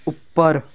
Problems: none marked